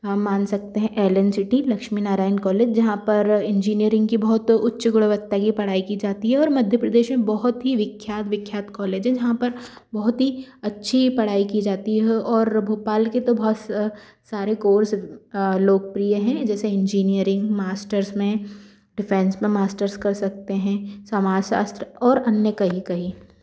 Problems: background sounds at intervals